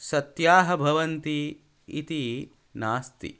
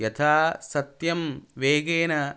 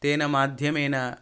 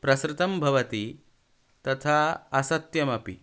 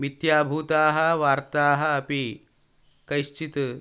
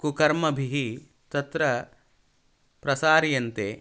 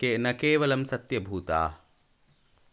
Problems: none marked